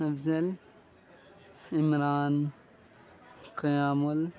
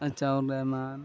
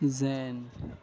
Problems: constant background noise